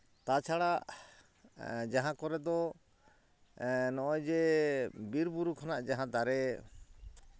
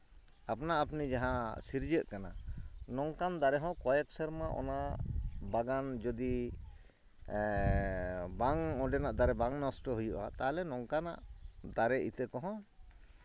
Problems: none marked